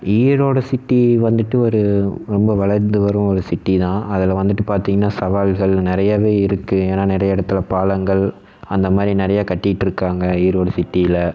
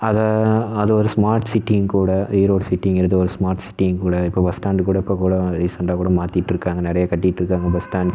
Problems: none marked